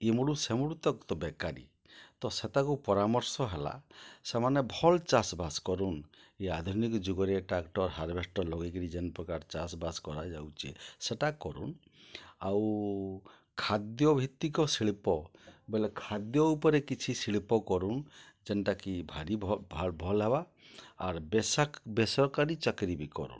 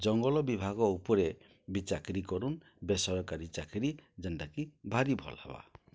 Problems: low volume